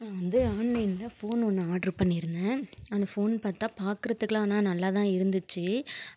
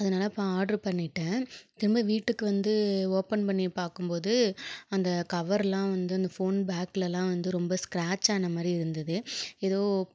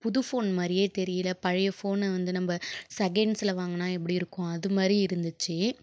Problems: none marked